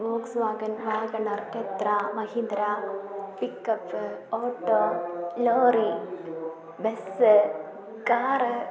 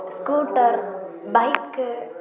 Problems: continuous background conversations